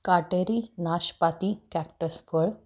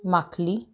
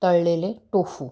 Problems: none marked